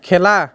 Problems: continuous background conversations